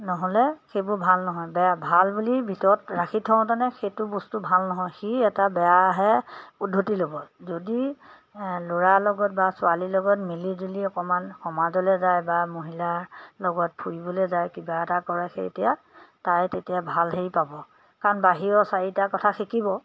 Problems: background sounds at intervals